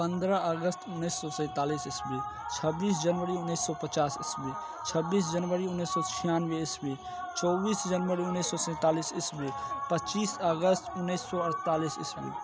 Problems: constant background noise